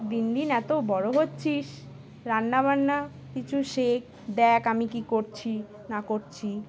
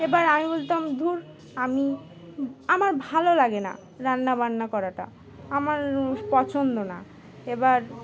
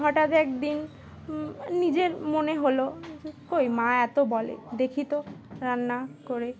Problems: constant background noise, continuous background conversations